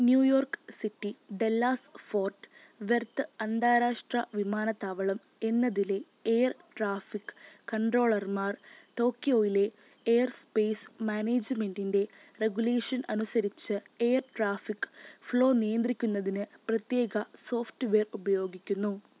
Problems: none marked